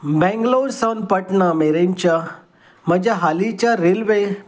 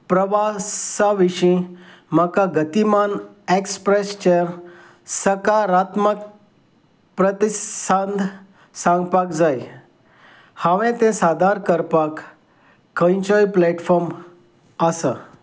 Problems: none marked